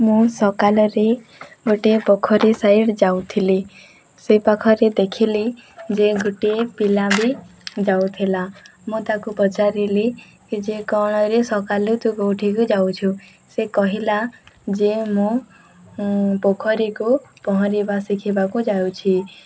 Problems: background conversations at intervals